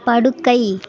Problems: continuous background conversations